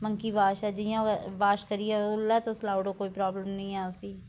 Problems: background sounds at intervals